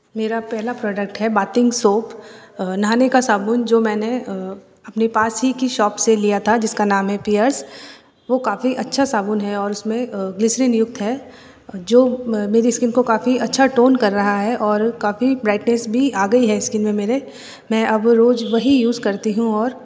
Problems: none marked